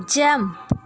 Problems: none marked